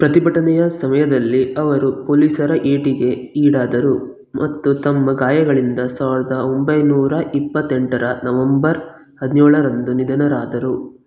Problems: none marked